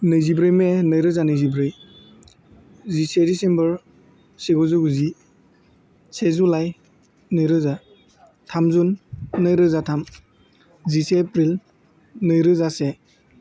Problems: none marked